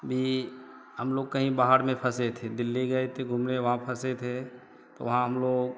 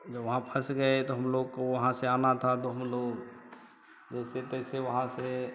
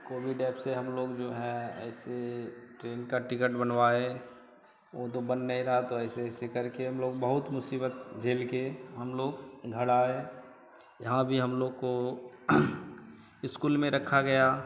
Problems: none marked